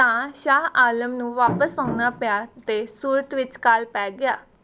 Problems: background sounds at intervals